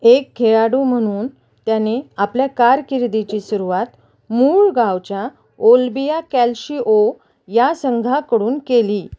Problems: none marked